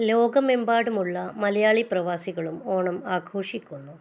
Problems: low volume